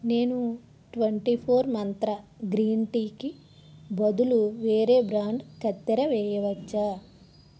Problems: none marked